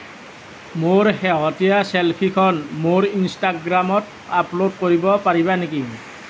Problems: none marked